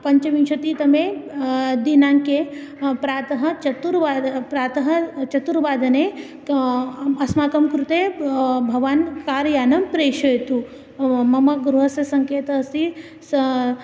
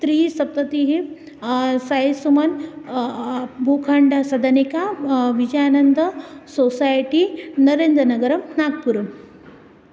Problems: constant background noise